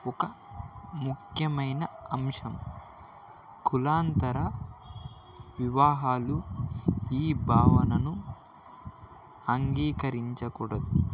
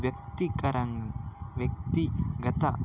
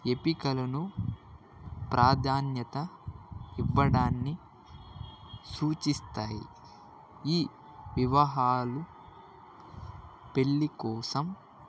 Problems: background sounds at intervals